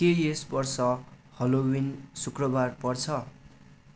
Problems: constant background noise